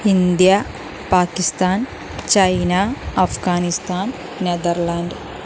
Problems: constant background noise